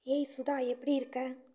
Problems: low volume